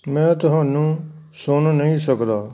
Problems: none marked